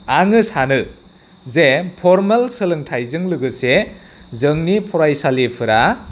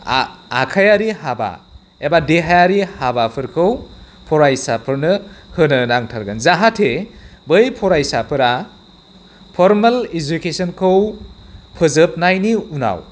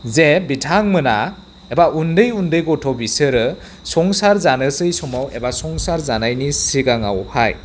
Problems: none marked